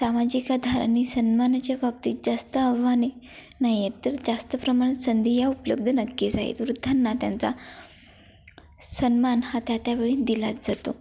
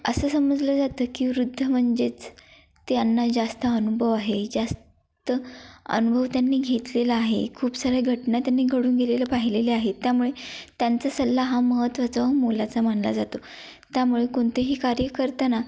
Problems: background sounds at intervals